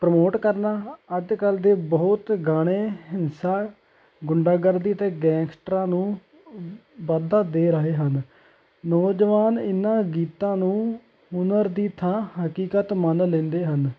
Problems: constant background noise